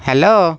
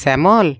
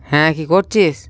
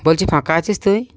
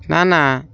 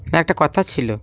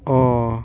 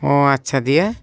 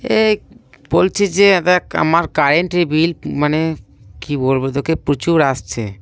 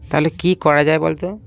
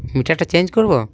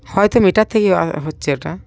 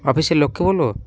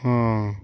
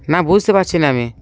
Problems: none marked